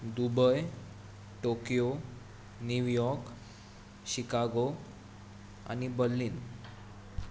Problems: constant background noise